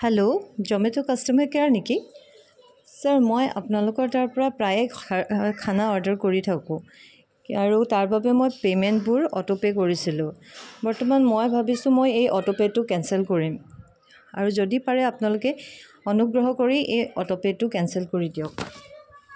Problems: continuous background conversations